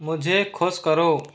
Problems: constant background noise